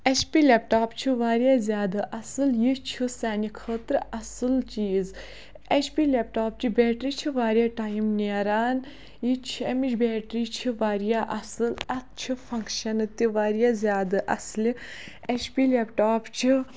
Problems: none marked